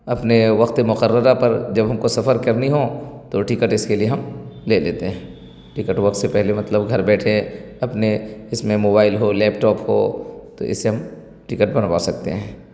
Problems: constant background noise